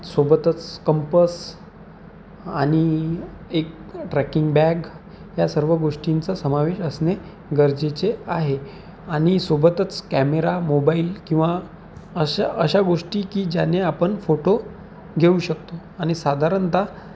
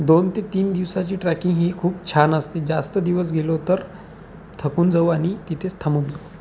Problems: constant background noise